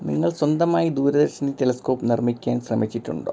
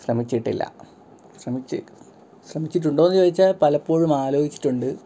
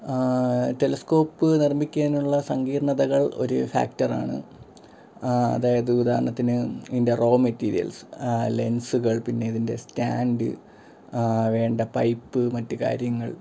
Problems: background sounds at intervals